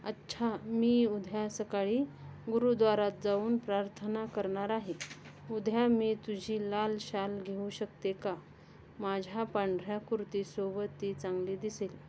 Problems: constant background noise, background conversations at intervals